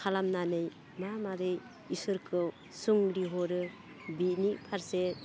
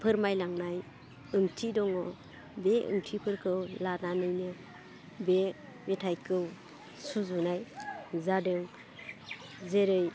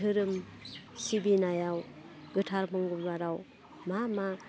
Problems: constant background noise